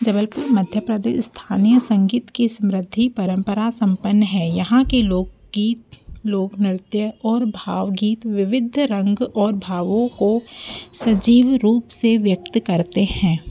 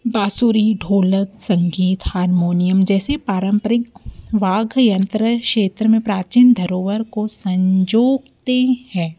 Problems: background sounds at intervals